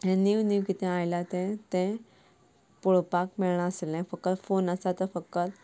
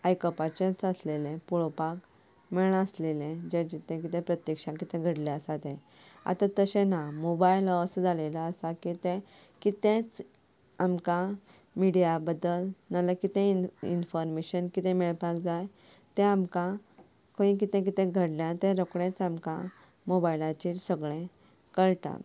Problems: none marked